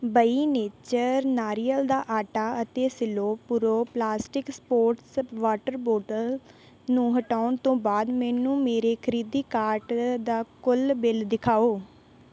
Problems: background sounds at intervals